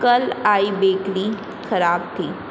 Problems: constant background noise